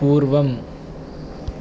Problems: none marked